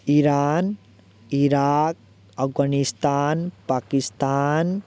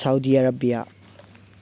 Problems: none marked